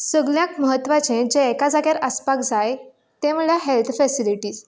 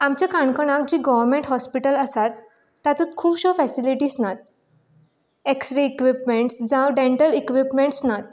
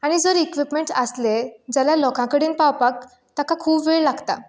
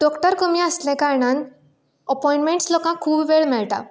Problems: none marked